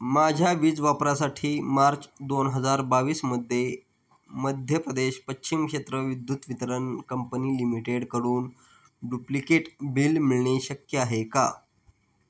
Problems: none marked